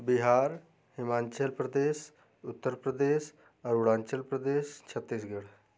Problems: none marked